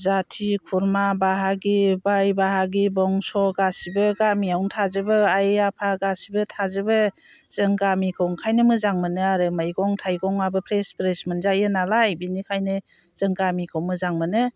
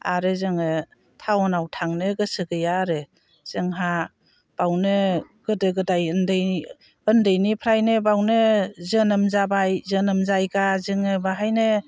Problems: constant background noise